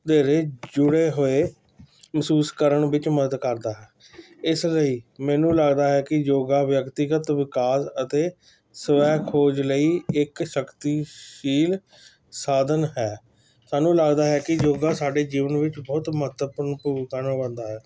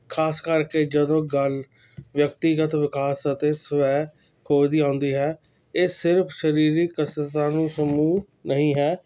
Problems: constant background noise